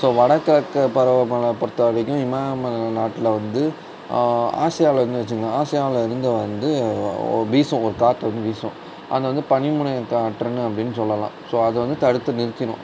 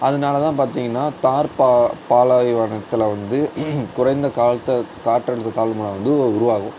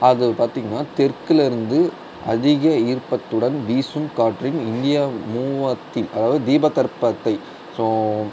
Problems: constant background noise